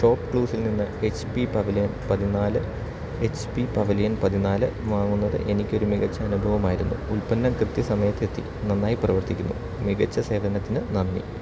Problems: constant background noise